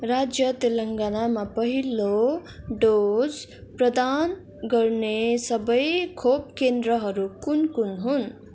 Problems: continuous background conversations